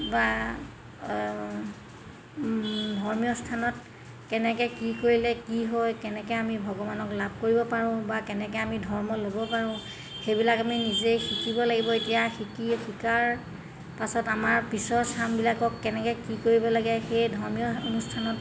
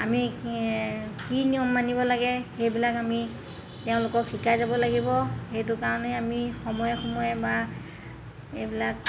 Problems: constant background noise